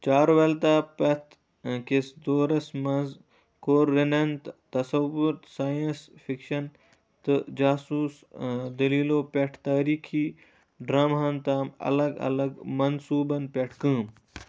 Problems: low volume